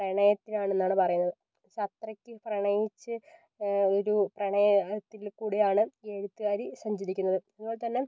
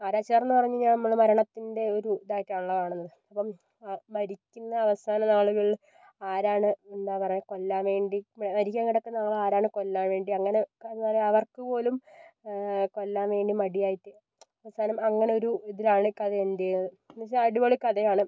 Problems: low volume